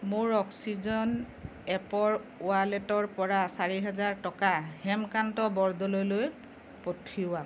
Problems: background sounds at intervals